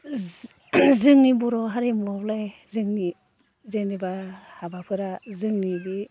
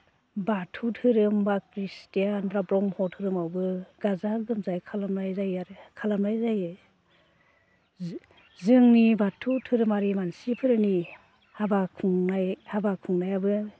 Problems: constant background noise